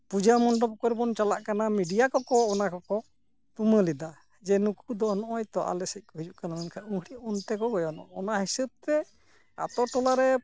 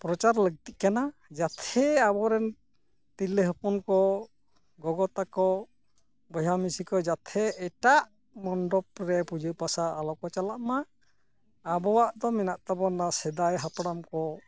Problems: none marked